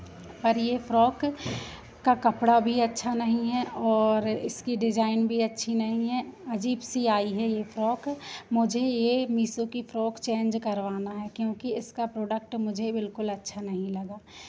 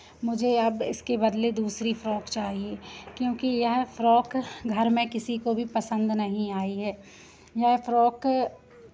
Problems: constant background noise